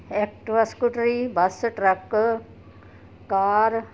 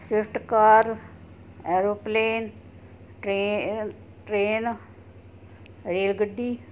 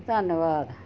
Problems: constant background noise